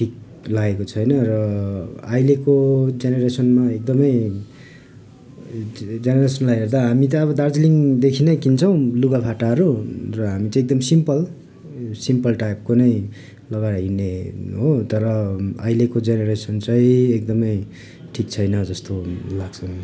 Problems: background conversations at intervals